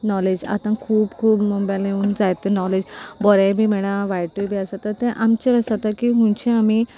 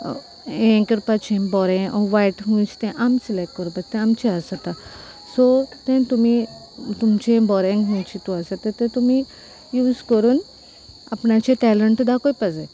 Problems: background sounds at intervals